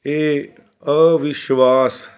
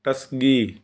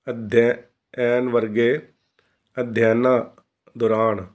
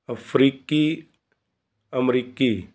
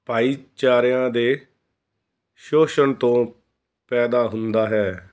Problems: background sounds at intervals